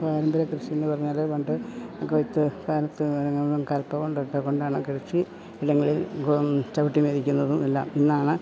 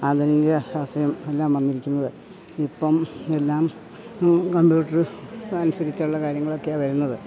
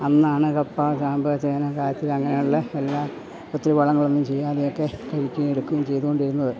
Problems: constant background noise, background conversations at intervals